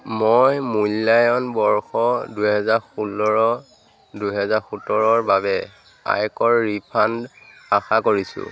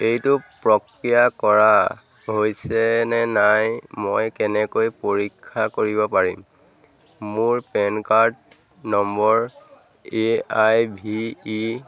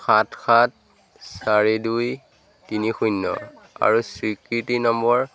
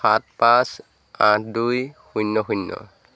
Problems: constant background noise, background conversations at intervals